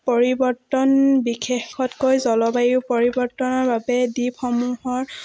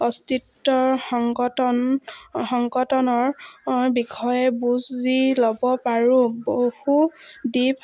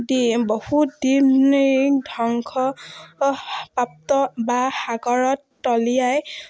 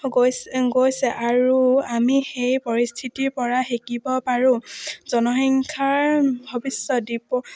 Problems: none marked